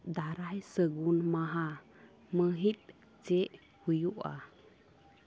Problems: background sounds at intervals